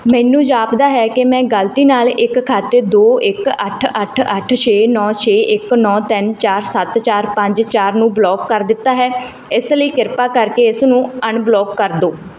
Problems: background sounds at intervals